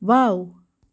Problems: none marked